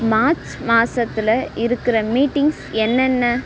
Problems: background sounds at intervals